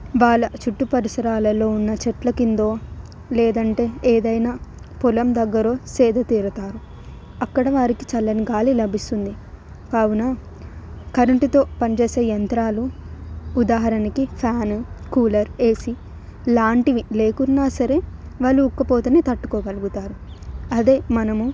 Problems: background sounds at intervals